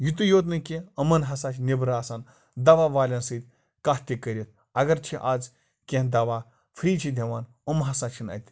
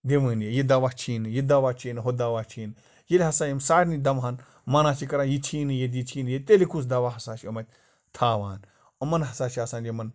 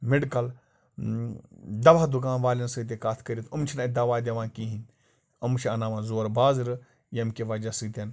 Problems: constant background noise